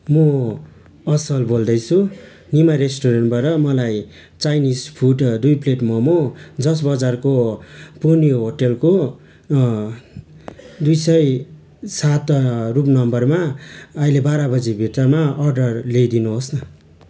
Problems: constant background noise